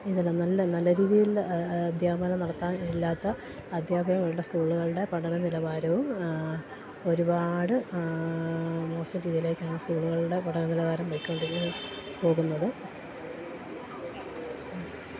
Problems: constant background noise